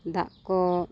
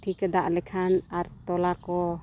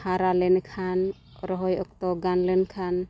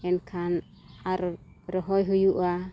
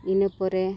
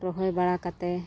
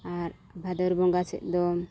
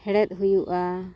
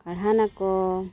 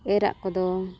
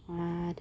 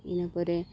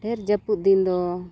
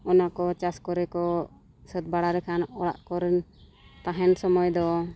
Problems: background sounds at intervals